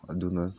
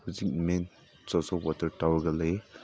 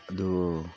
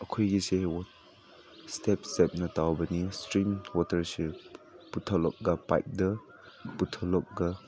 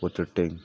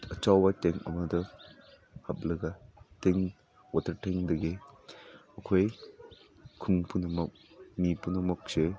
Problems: none marked